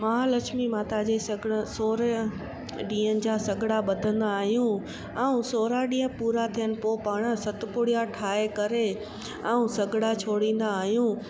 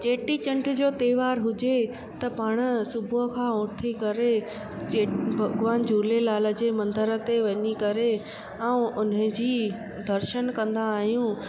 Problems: constant background noise